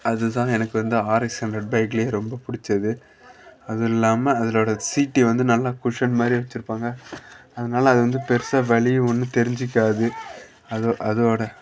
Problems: none marked